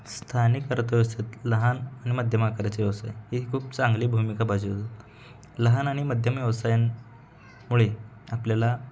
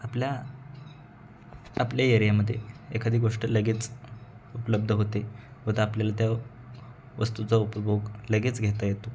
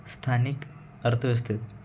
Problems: background sounds at intervals, background conversations at intervals